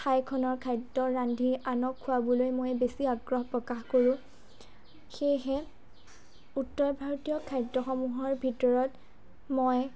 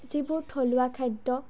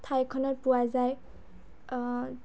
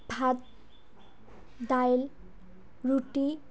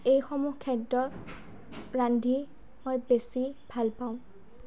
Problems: low volume